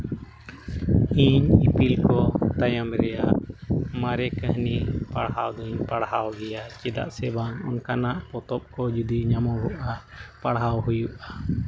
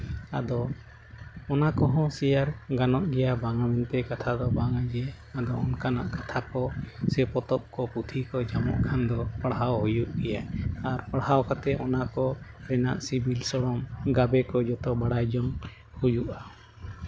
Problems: constant background noise